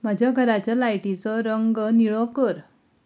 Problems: none marked